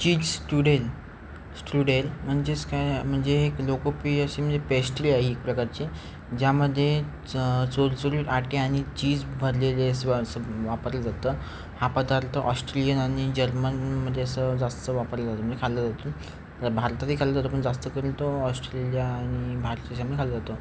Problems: constant background noise